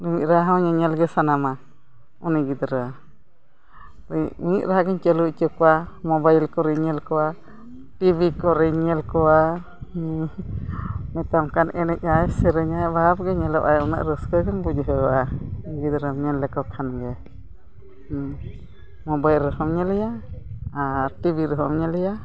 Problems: continuous background conversations